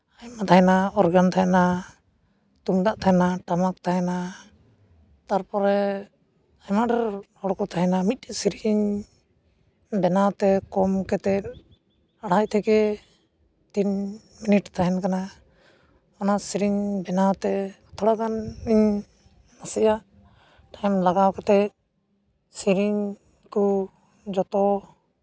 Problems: constant background noise